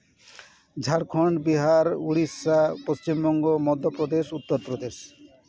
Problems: continuous background conversations